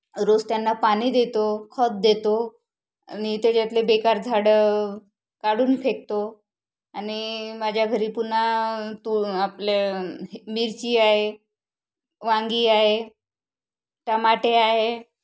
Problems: background sounds at intervals